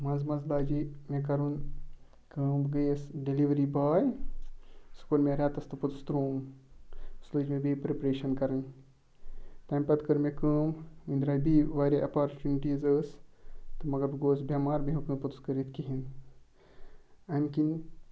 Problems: background sounds at intervals